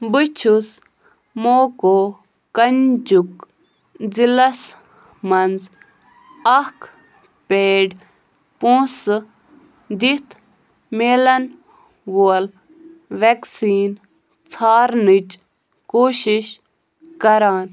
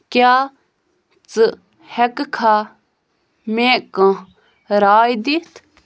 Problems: none marked